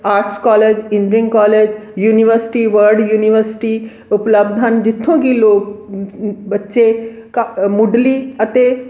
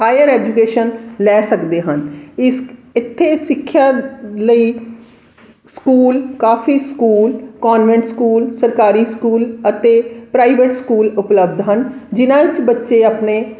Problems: background sounds at intervals, background conversations at intervals